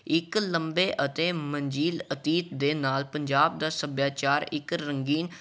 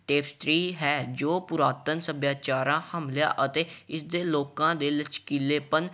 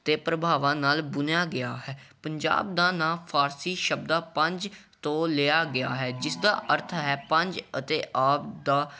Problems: none marked